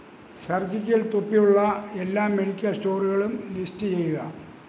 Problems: none marked